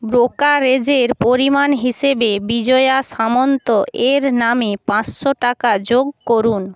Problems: constant background noise